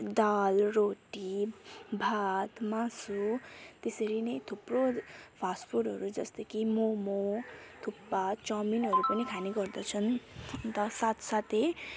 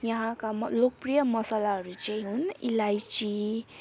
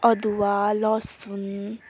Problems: constant background noise, background conversations at intervals